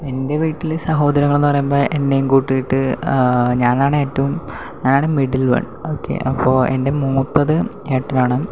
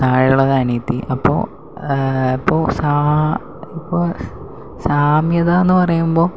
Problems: low volume